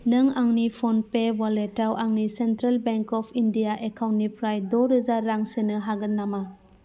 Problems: constant background noise